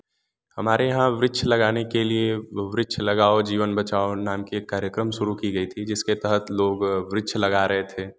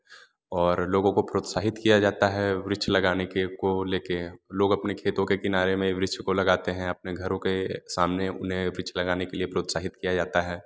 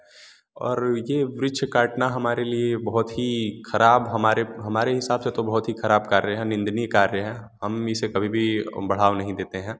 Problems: none marked